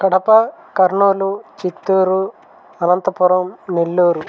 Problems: constant background noise